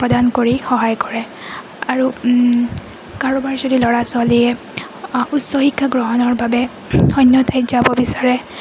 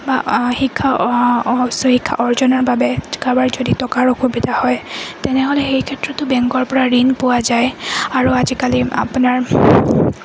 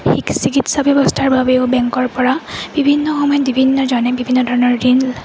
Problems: constant background noise